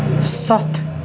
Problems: constant background noise